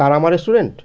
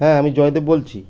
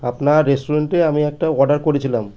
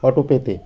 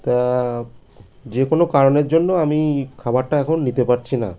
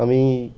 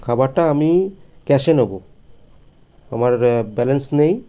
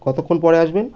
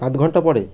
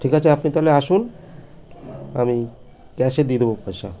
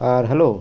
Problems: constant background noise, background conversations at intervals